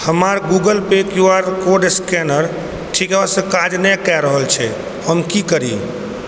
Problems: constant background noise